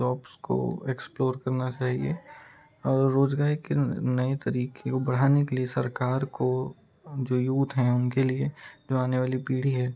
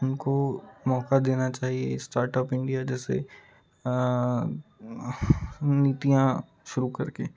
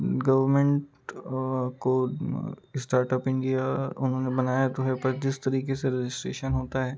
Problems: constant background noise, continuous background conversations